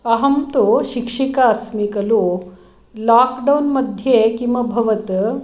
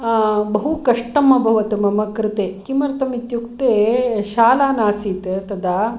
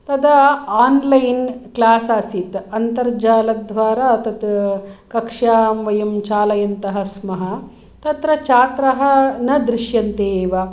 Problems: none marked